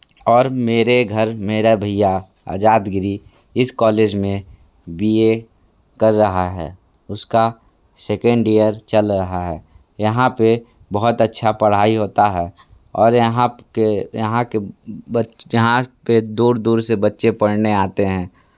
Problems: constant background noise